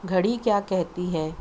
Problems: constant background noise